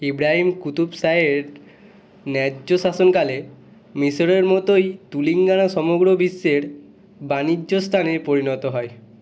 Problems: background sounds at intervals